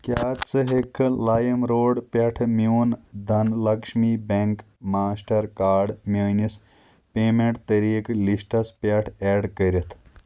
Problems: constant background noise